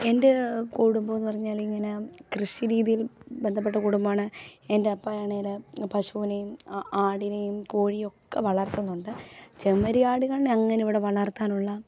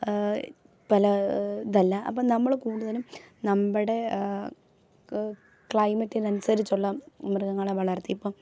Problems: none marked